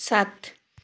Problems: none marked